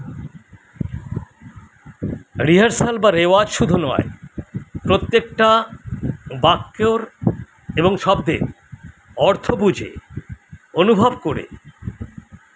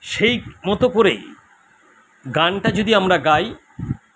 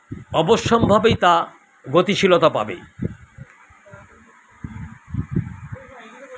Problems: constant background noise, continuous background conversations